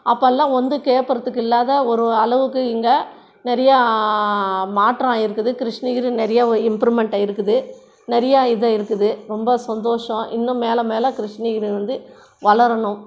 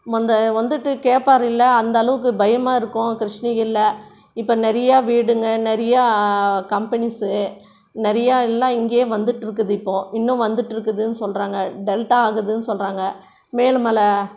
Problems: background sounds at intervals, background conversations at intervals